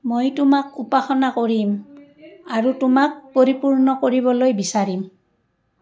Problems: background conversations at intervals